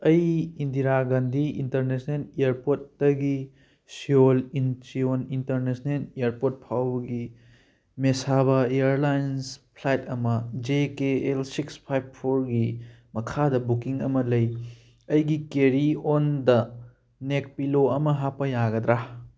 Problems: none marked